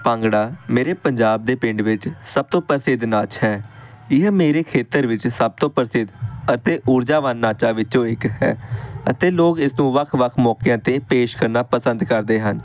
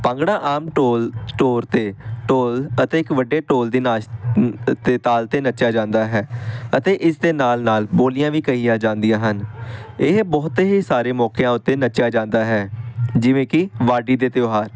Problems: constant background noise